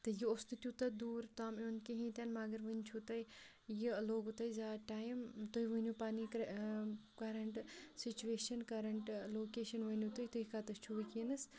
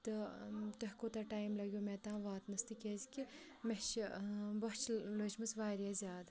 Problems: background sounds at intervals, low volume